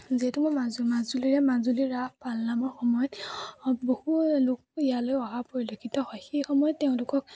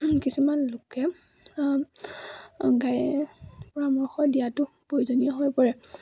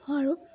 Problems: none marked